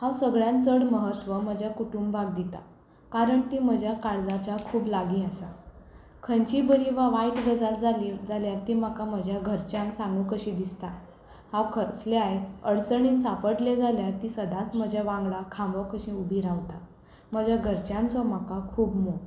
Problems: constant background noise